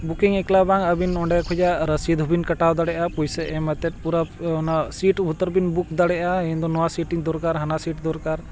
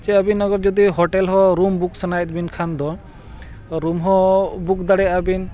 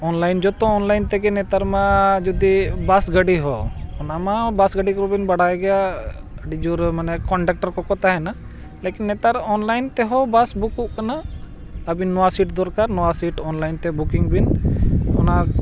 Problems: background sounds at intervals